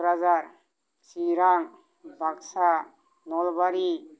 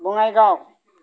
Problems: none marked